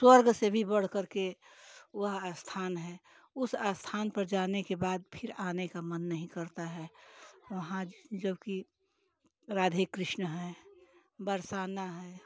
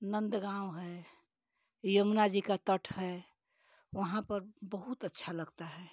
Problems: none marked